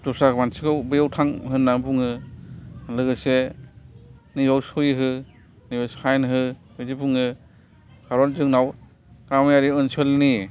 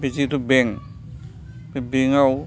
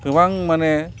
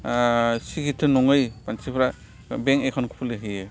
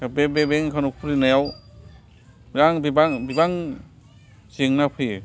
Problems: background sounds at intervals